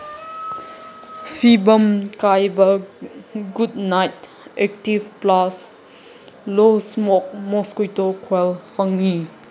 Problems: constant background noise